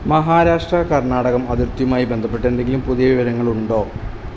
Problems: constant background noise